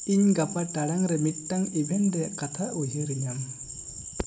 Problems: constant background noise